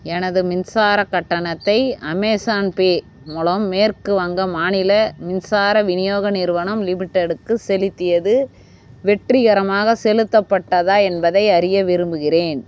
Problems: none marked